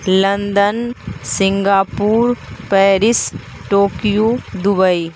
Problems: constant background noise